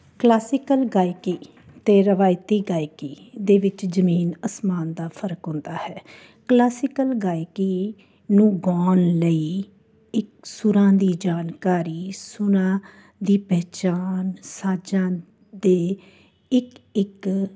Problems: background sounds at intervals